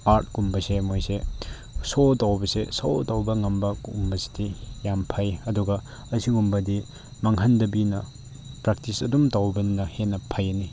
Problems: constant background noise